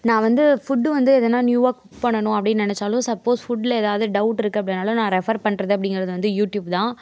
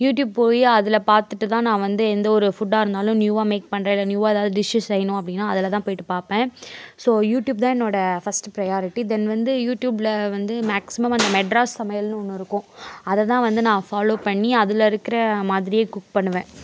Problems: background sounds at intervals